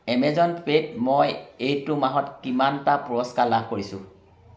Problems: none marked